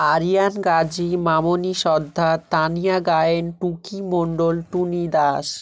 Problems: none marked